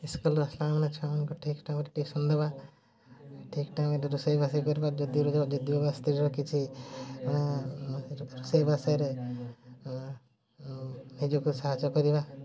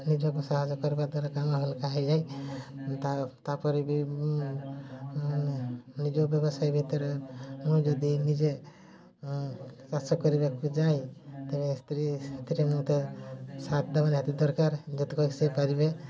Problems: none marked